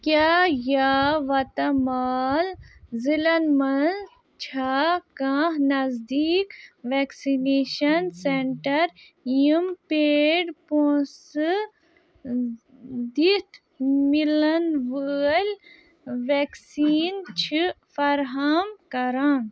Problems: none marked